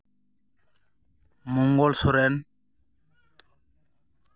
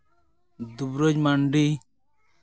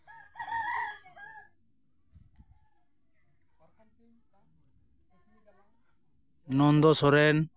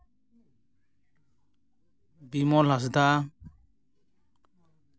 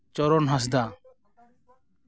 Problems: background sounds at intervals, background conversations at intervals